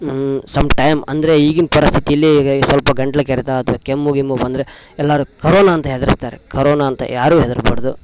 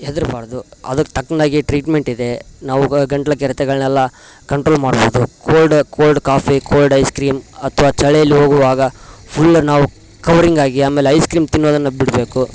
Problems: constant background noise